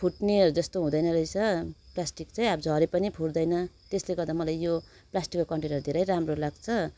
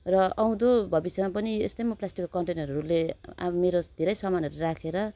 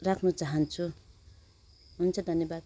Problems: none marked